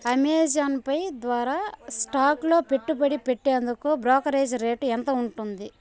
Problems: constant background noise, continuous background conversations